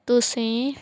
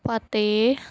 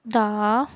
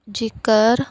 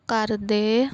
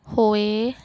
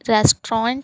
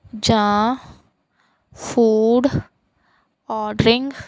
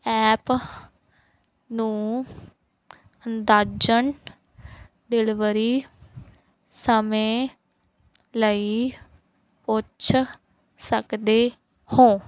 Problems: none marked